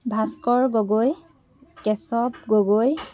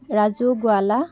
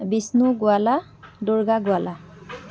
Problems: constant background noise, continuous background conversations